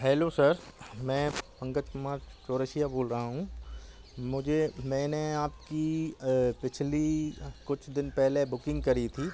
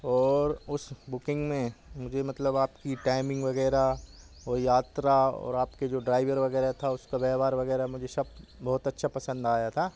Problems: background sounds at intervals